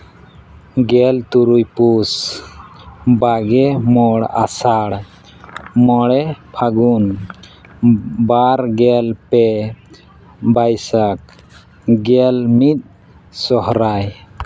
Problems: none marked